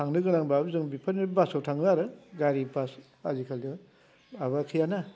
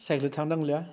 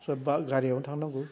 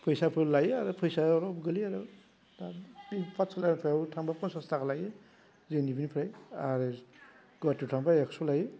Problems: constant background noise